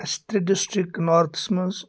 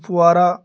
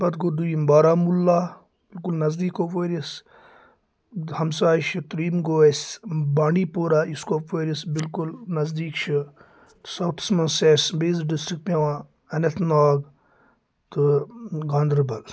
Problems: constant background noise